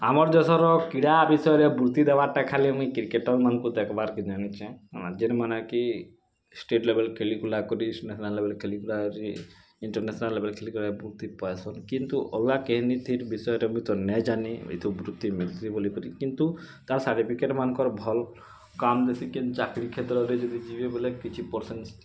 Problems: background sounds at intervals